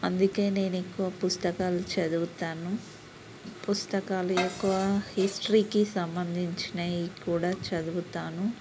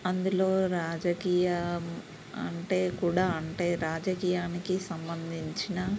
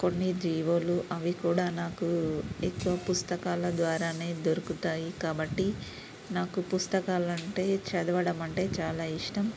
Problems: constant background noise, low volume